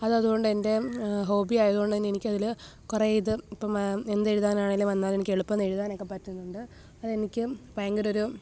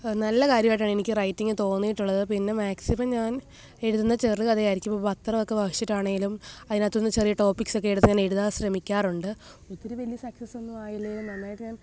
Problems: background sounds at intervals, low volume